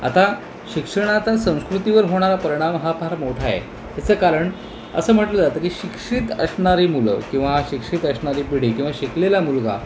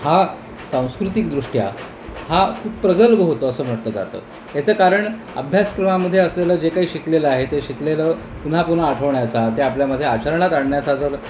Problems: constant background noise